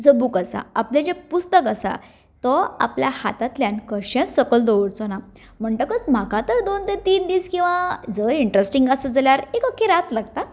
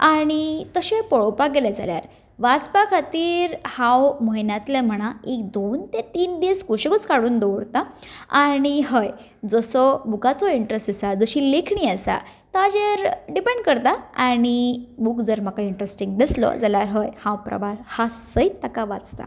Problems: background sounds at intervals